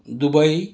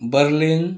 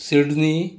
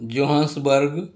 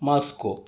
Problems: none marked